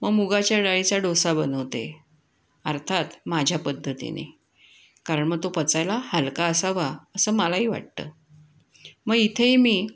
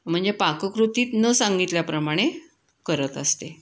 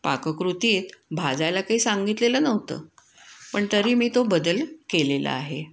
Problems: none marked